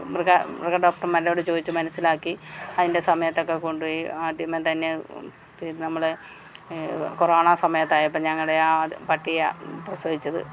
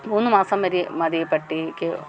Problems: none marked